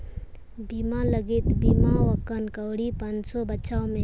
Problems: background sounds at intervals